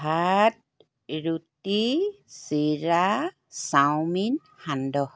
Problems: none marked